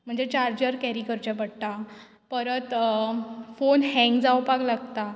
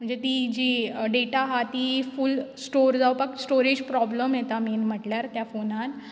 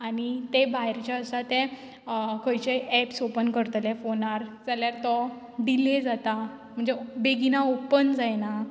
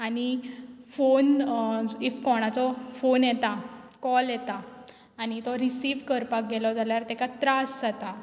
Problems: background sounds at intervals